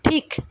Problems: none marked